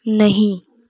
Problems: none marked